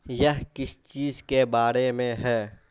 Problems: constant background noise